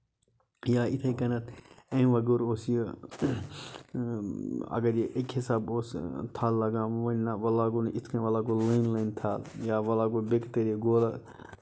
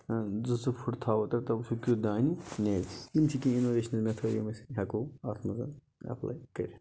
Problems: low volume